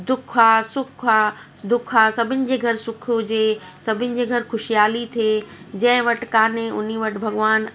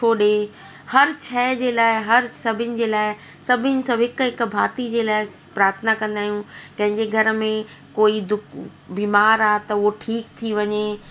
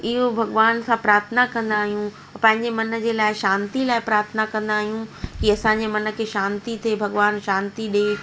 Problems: constant background noise, echo